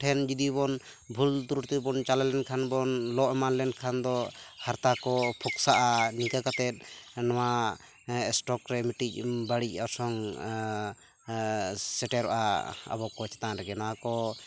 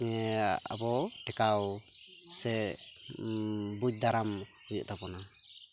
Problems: constant background noise